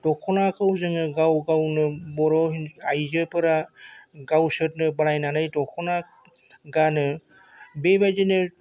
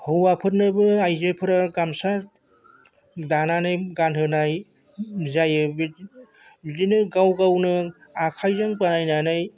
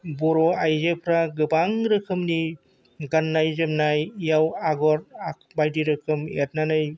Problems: constant background noise